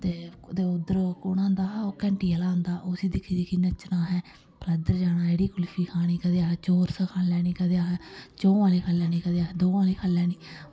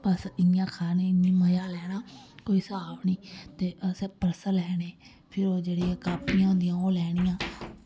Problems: background sounds at intervals, echo